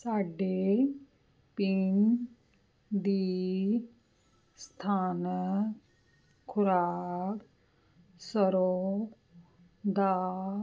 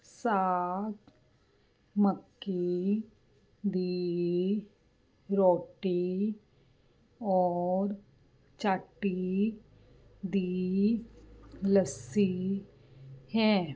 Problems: none marked